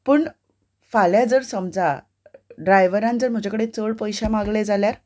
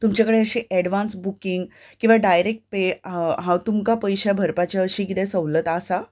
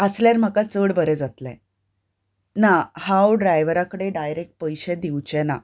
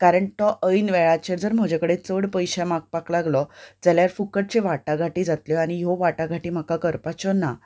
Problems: none marked